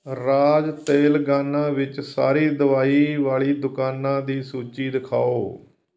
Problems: background sounds at intervals